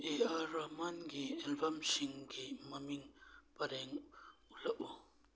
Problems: none marked